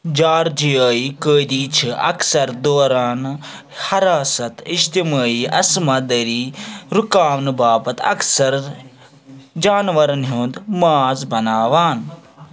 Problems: background sounds at intervals, background conversations at intervals